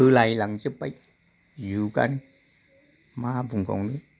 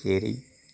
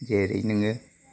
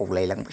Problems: none marked